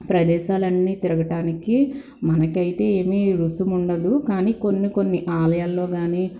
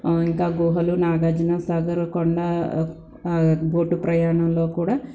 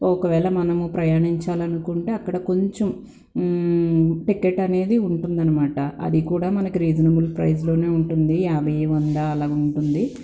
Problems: constant background noise